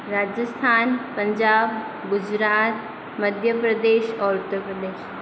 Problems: constant background noise